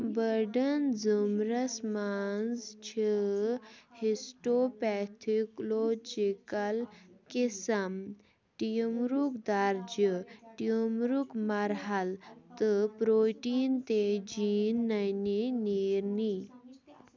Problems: none marked